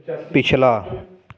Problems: continuous background conversations